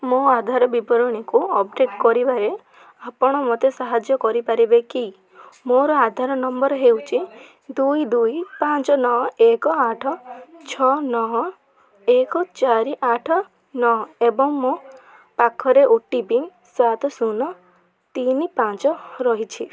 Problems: background conversations at intervals